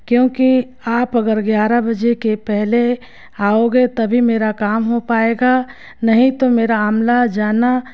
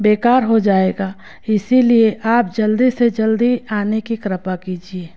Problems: constant background noise